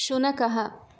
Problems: none marked